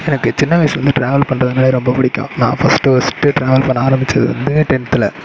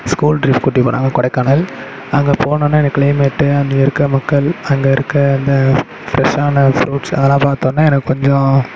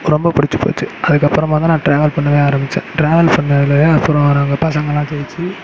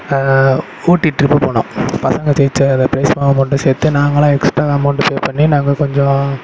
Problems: none marked